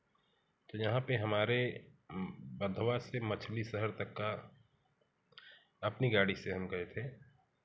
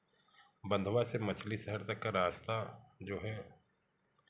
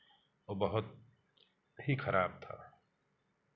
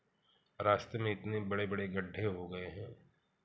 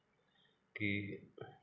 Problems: background sounds at intervals, background conversations at intervals